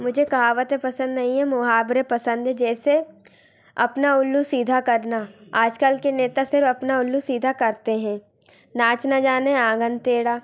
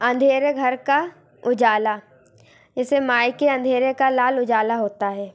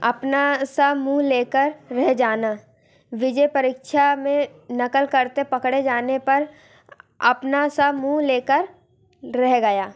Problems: constant background noise, continuous background conversations